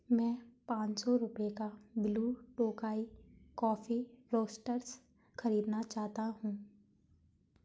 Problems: constant background noise